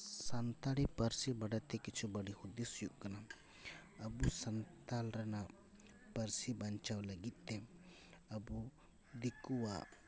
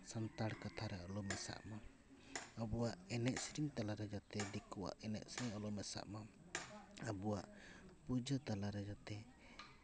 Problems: constant background noise